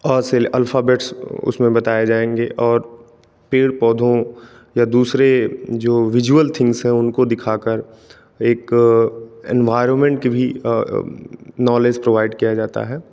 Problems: none marked